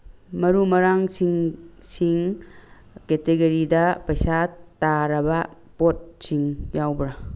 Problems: background sounds at intervals